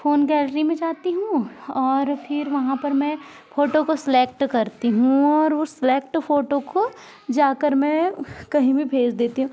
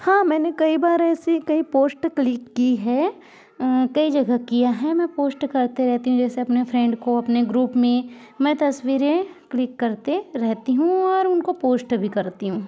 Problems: background sounds at intervals, continuous background conversations